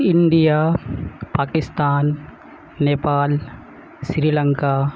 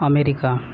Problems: none marked